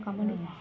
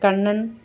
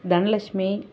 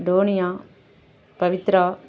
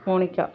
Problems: background conversations at intervals